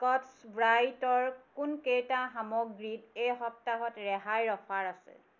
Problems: none marked